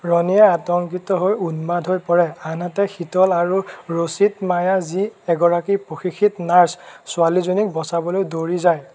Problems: none marked